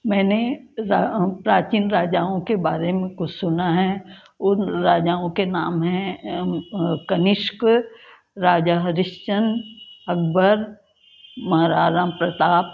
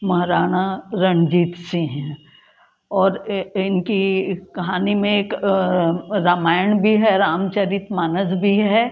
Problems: constant background noise